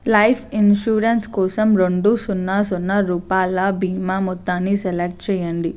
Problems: none marked